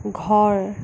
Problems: constant background noise